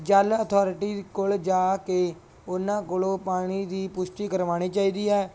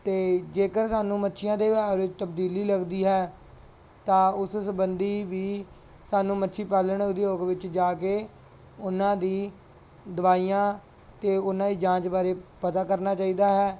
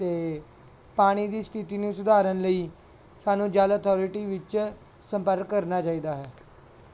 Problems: background sounds at intervals